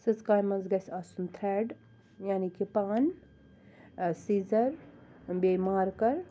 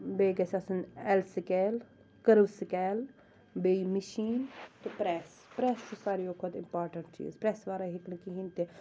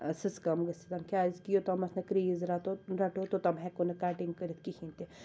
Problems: constant background noise